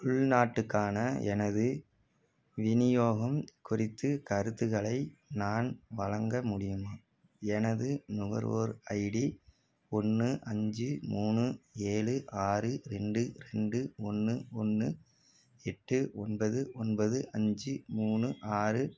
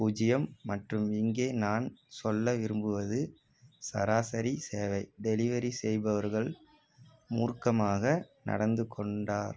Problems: background sounds at intervals